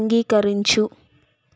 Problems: none marked